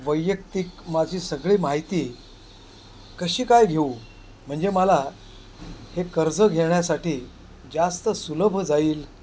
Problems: constant background noise, background conversations at intervals